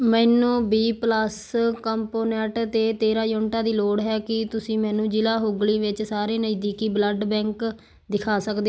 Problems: background sounds at intervals